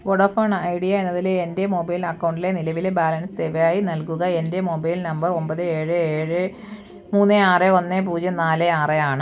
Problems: none marked